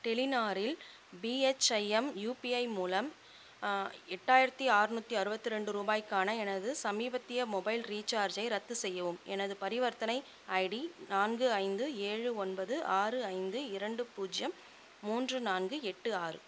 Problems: constant background noise